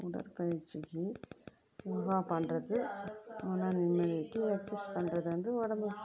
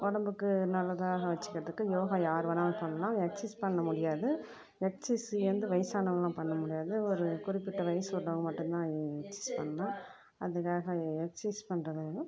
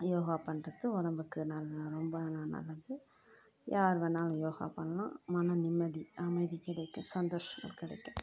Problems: background conversations at intervals